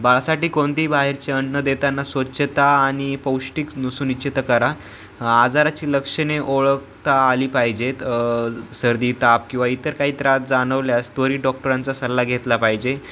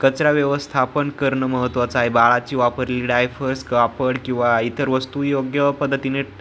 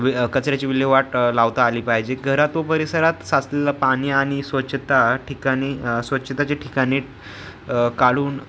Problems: background sounds at intervals